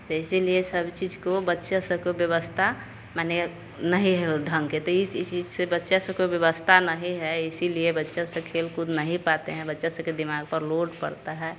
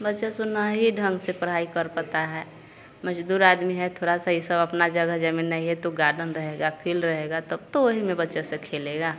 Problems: constant background noise